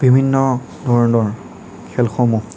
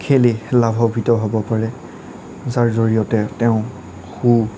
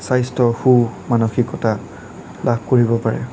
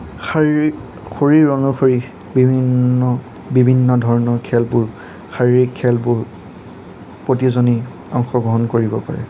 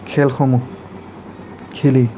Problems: none marked